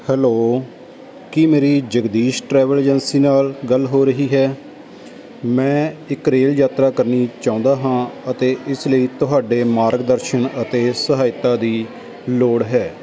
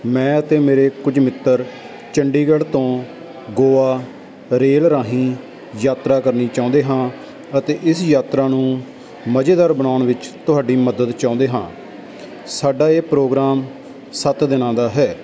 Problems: none marked